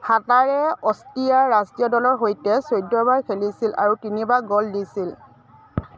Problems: none marked